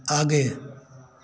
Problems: constant background noise